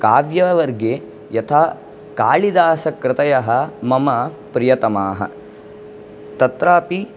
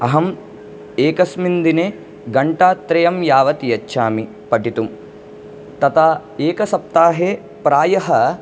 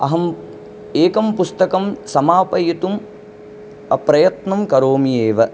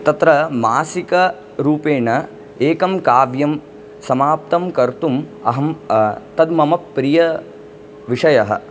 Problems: background sounds at intervals